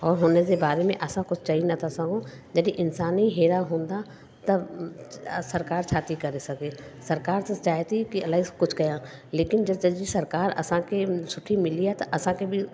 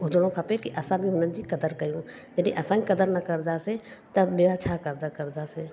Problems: constant background noise, echo